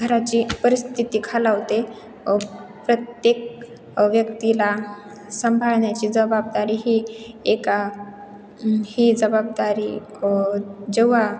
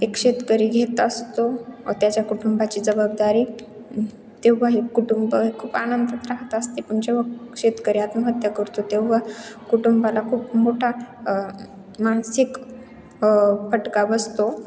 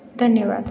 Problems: none marked